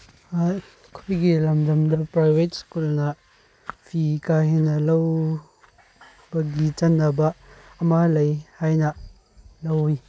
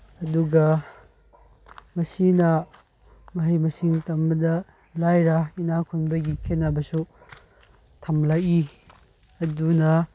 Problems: none marked